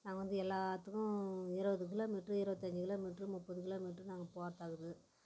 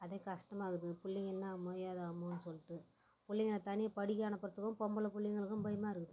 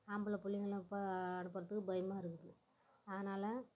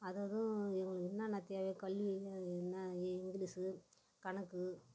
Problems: background sounds at intervals, low volume